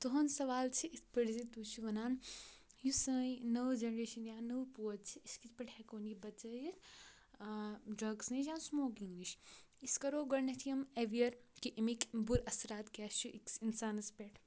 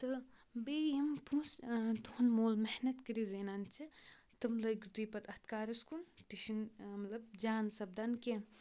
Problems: background sounds at intervals